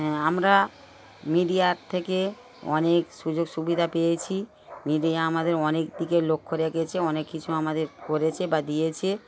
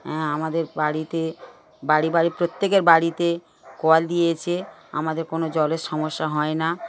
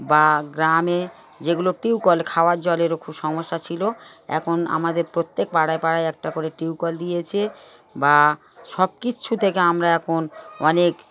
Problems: background sounds at intervals, background conversations at intervals